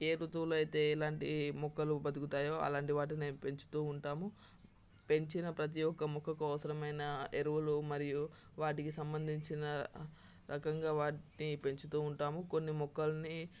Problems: constant background noise, background conversations at intervals